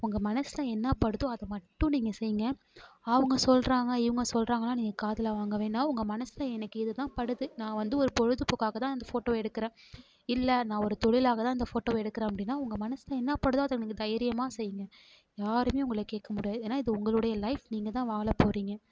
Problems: none marked